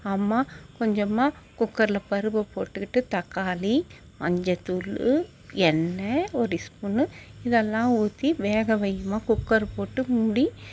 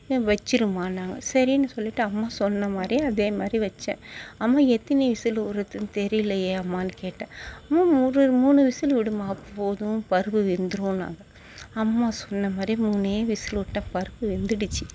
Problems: background sounds at intervals